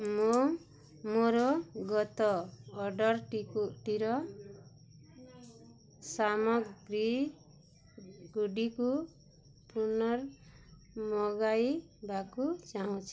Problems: none marked